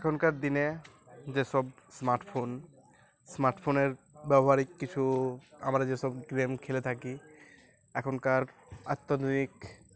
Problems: background sounds at intervals